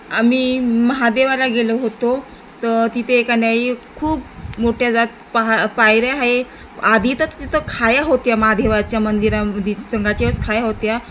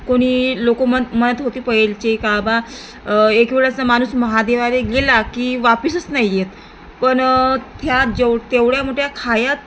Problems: constant background noise